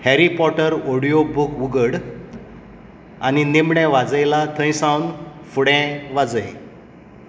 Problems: constant background noise